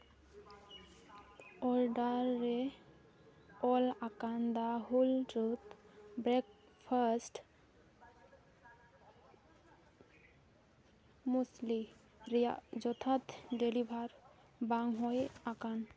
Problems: continuous background conversations